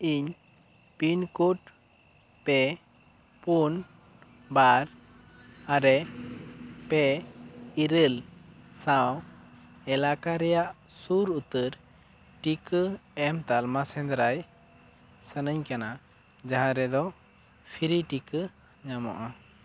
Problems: constant background noise